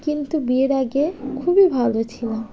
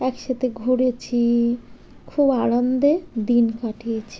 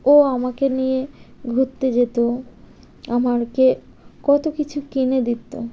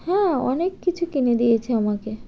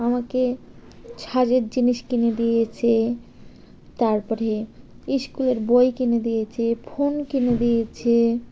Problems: constant background noise